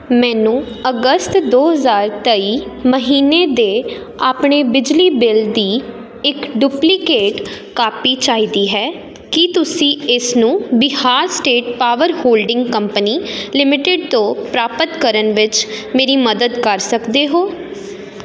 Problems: constant background noise